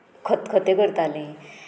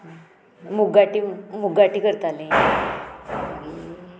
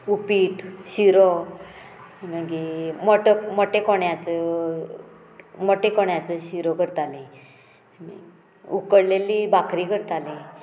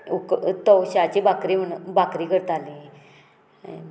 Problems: background sounds at intervals, background conversations at intervals